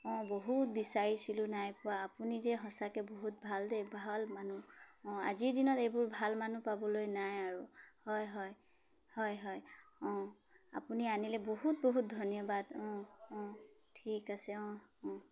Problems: none marked